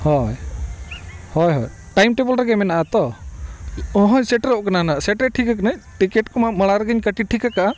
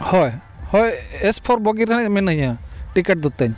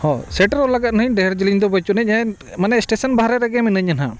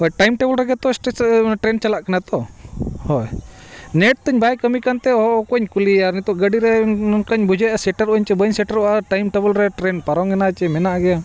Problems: constant background noise, background conversations at intervals